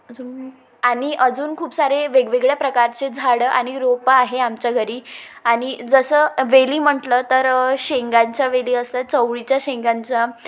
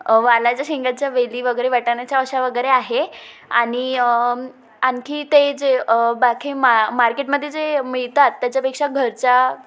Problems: constant background noise, echo